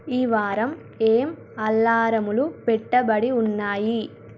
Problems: none marked